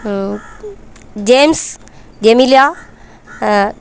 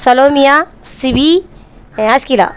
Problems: background sounds at intervals